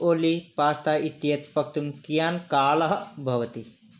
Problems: none marked